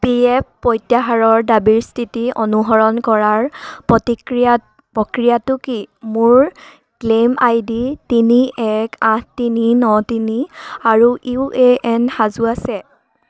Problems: background sounds at intervals